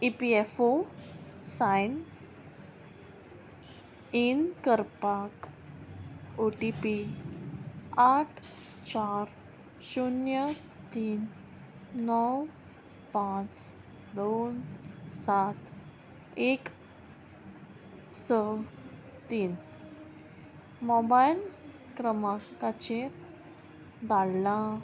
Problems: none marked